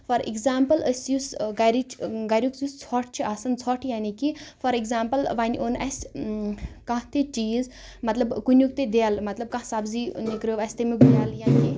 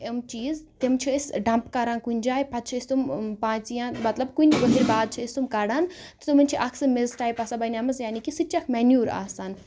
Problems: none marked